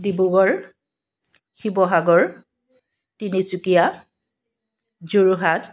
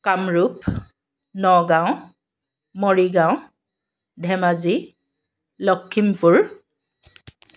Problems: constant background noise